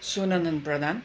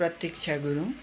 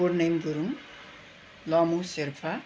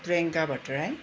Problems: none marked